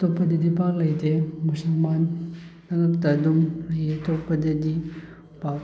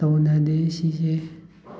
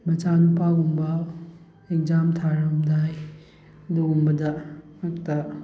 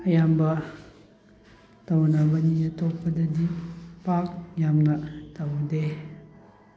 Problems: background sounds at intervals